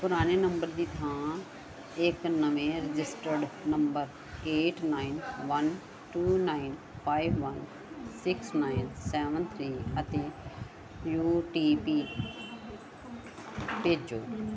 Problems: background conversations at intervals